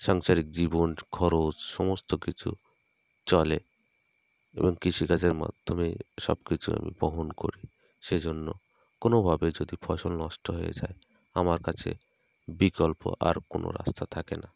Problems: none marked